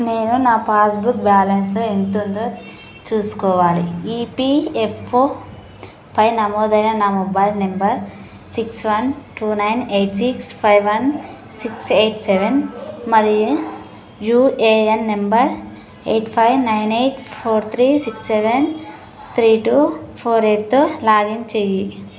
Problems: constant background noise, background conversations at intervals